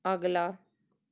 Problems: background sounds at intervals